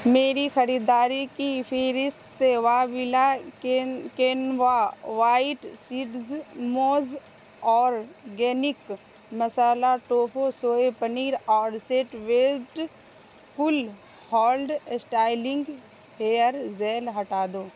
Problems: constant background noise